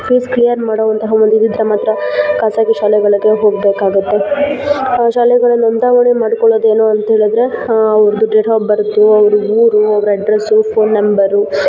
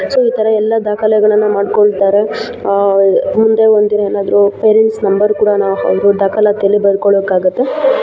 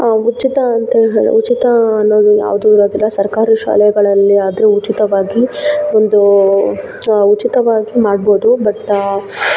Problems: background sounds at intervals